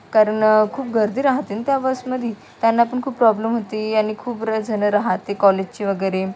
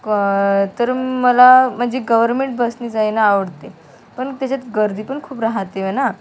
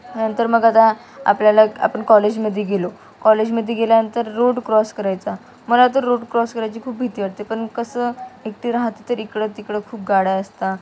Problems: constant background noise, continuous background conversations